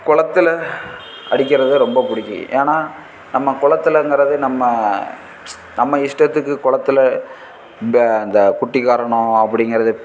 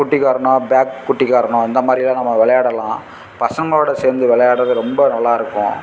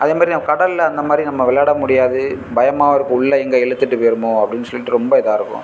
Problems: constant background noise